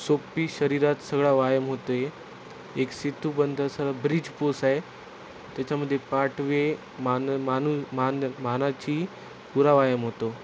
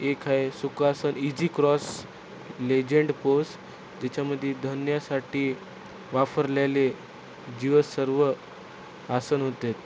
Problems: constant background noise